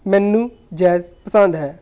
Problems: background sounds at intervals